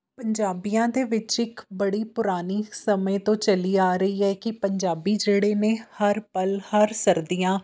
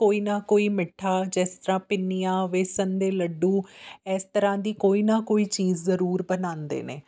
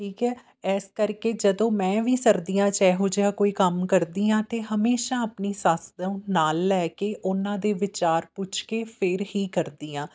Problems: none marked